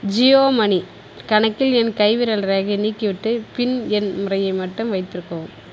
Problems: constant background noise